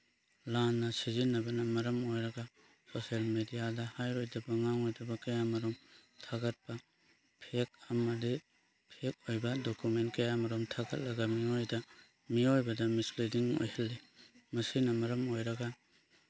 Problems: background sounds at intervals